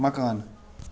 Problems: none marked